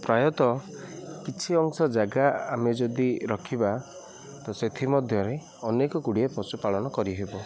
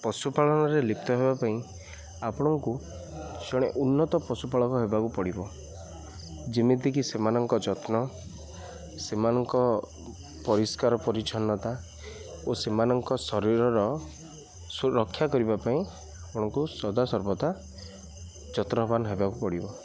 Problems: none marked